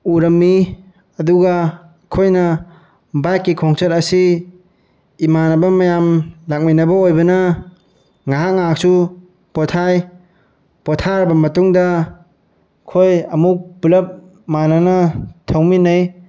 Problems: none marked